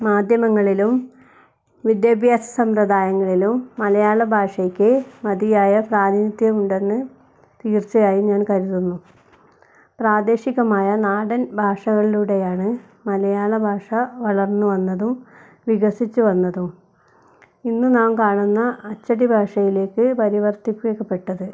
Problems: none marked